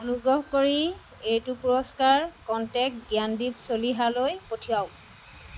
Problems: constant background noise